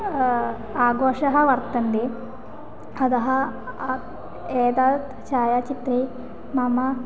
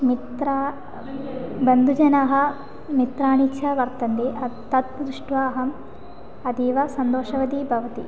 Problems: constant background noise, continuous background conversations